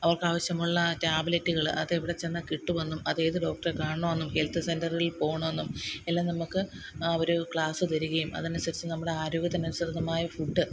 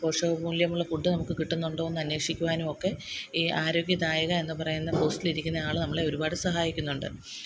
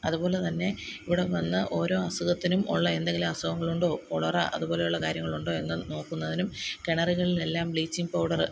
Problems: none marked